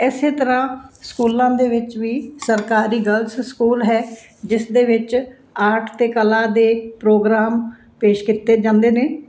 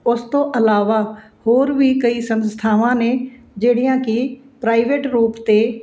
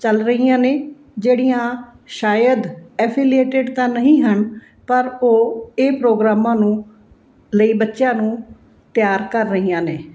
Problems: none marked